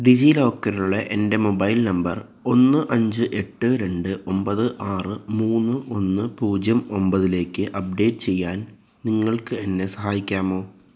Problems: none marked